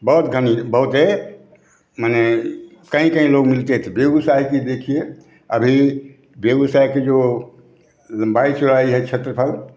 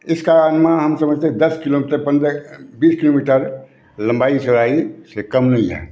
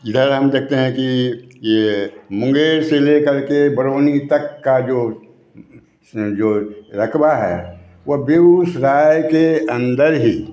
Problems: background sounds at intervals, background conversations at intervals